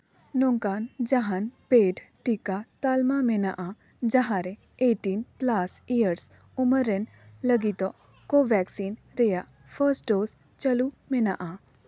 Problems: none marked